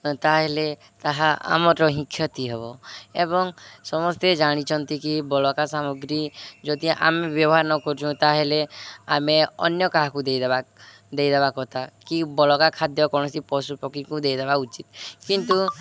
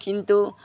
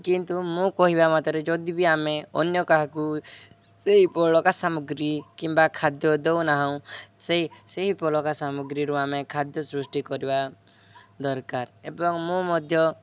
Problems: none marked